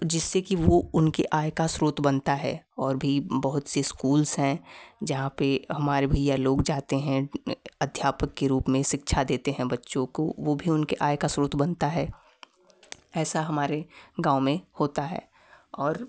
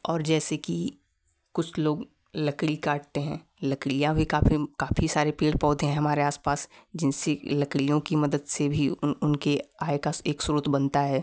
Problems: background sounds at intervals